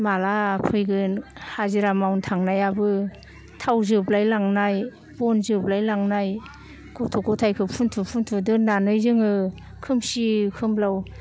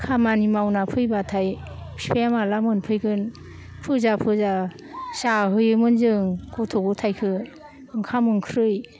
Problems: none marked